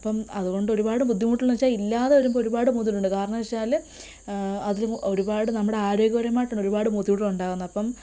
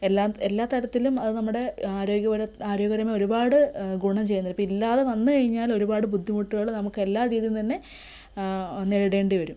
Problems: constant background noise